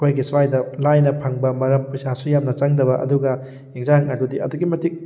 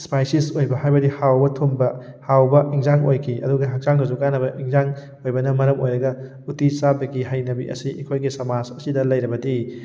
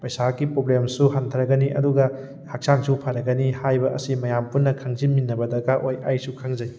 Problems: none marked